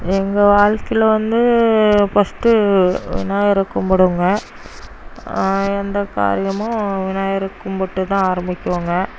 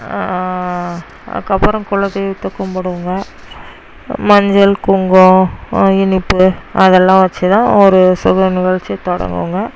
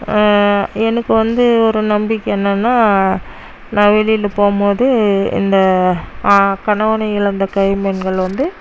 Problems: constant background noise